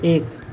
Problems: none marked